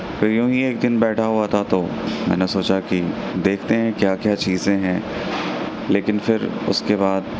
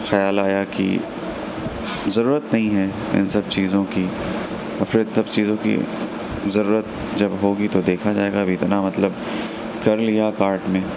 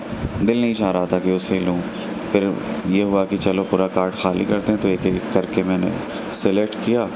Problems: constant background noise